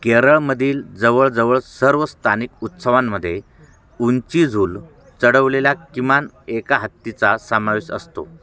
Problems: background sounds at intervals